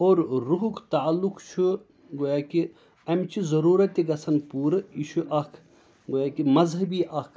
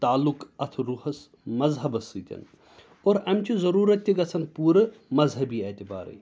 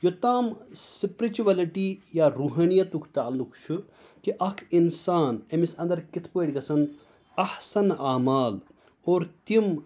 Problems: none marked